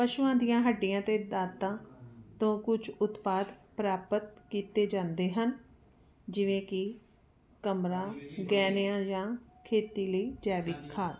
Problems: none marked